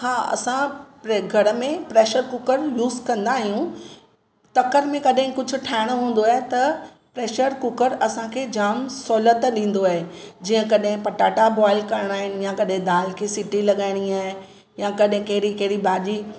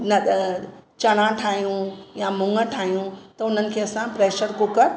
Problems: constant background noise